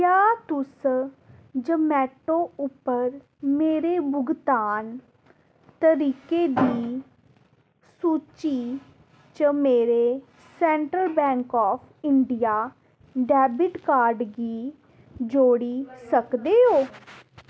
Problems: constant background noise